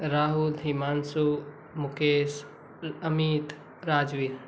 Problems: constant background noise